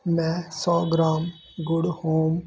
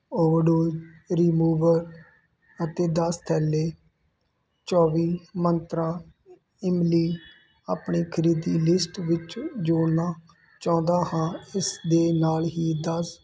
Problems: none marked